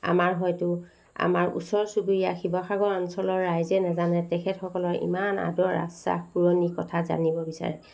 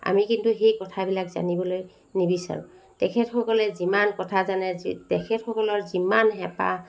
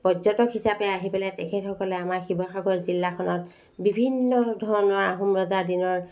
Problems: constant background noise